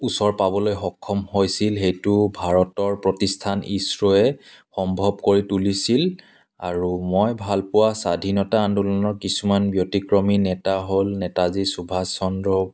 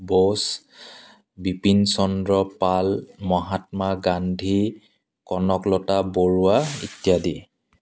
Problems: constant background noise